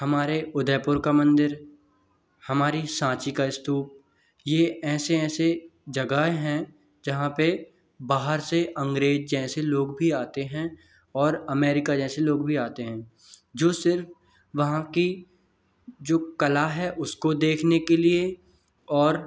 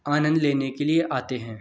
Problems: background sounds at intervals